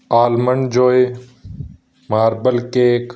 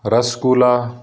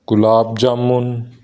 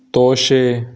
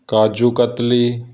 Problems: background sounds at intervals